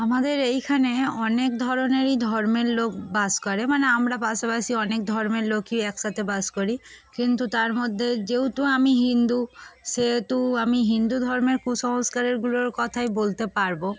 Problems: constant background noise, background conversations at intervals